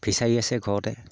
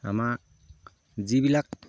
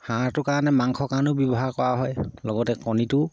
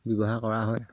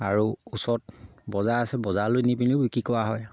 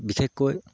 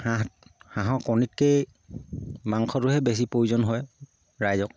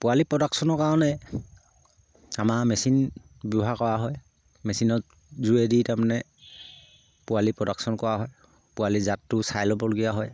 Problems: low volume